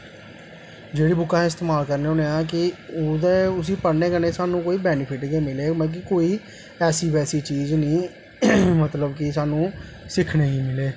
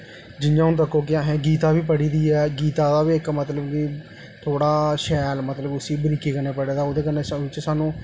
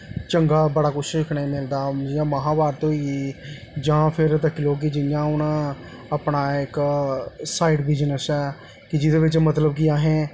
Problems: echo